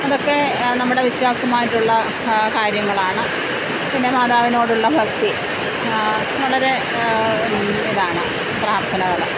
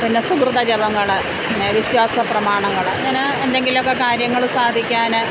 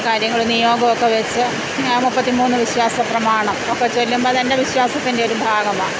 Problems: none marked